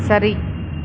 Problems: constant background noise